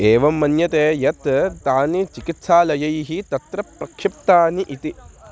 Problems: constant background noise